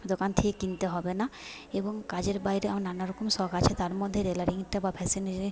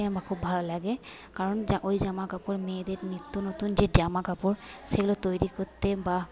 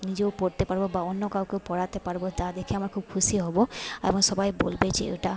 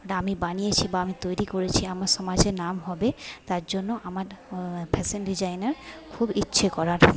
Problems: background conversations at intervals, low volume